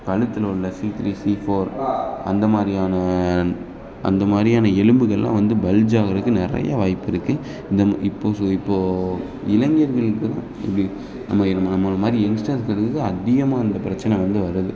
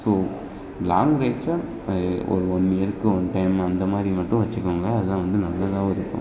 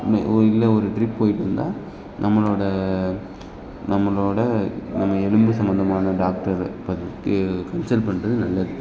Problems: background sounds at intervals, background conversations at intervals